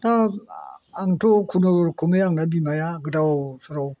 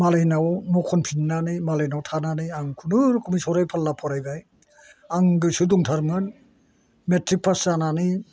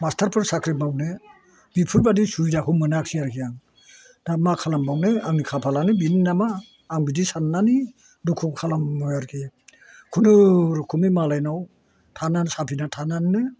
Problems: none marked